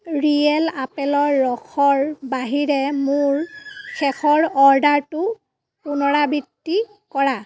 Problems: background sounds at intervals